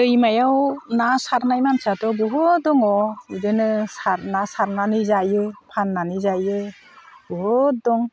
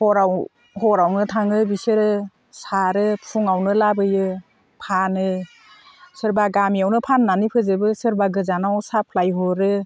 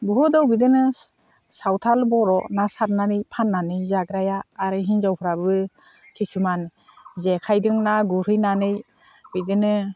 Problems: constant background noise